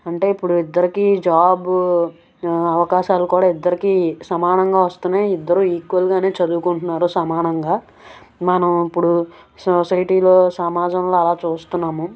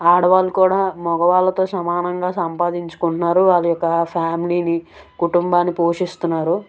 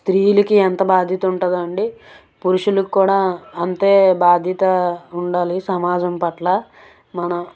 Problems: background sounds at intervals, background conversations at intervals